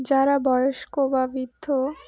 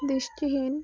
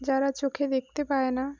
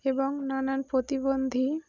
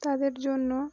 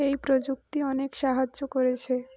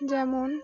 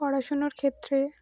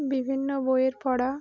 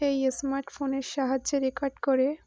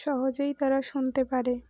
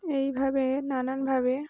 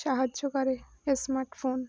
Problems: background sounds at intervals